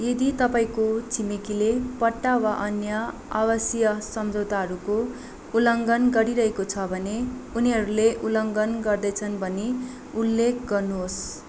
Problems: constant background noise